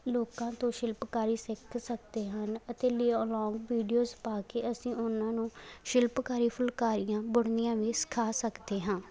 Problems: background sounds at intervals